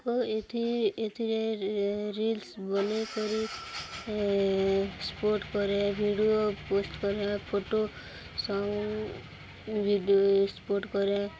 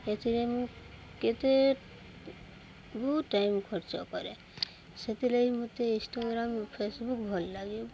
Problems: none marked